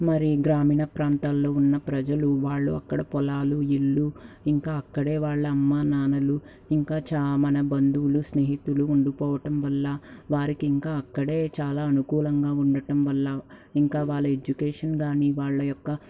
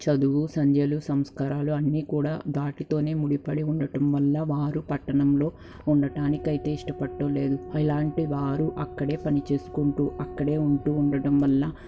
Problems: none marked